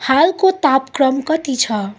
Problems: constant background noise